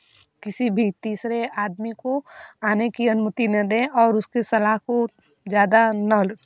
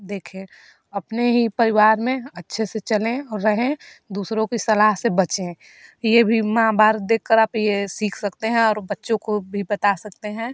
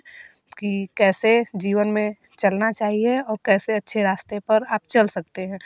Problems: background sounds at intervals